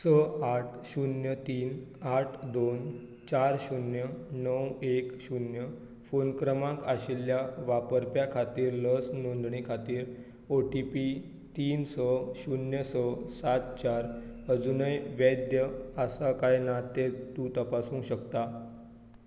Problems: low volume